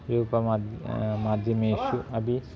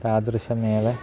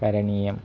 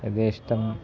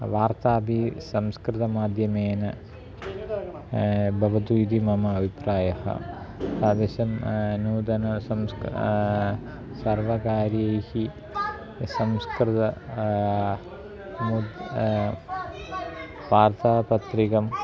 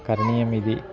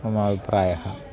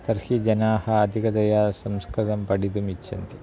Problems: constant background noise, continuous background conversations